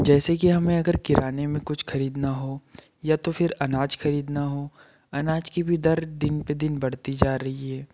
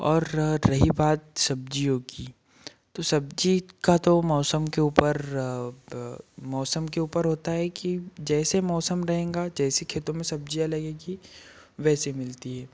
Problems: none marked